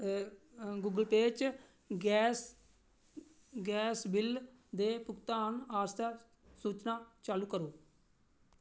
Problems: none marked